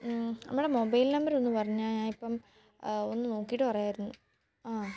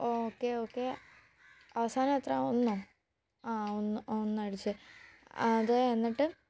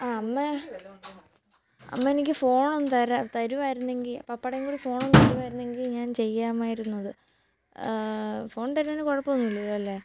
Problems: background sounds at intervals, low volume